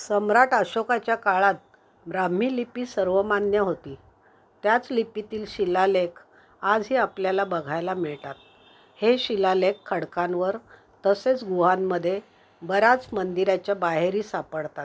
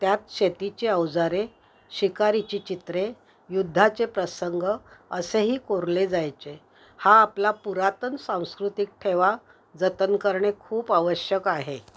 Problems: background sounds at intervals